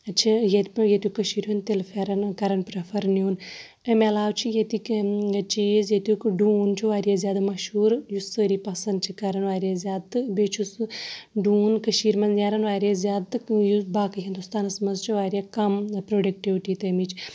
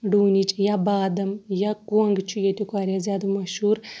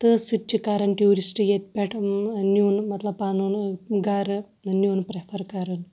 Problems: background sounds at intervals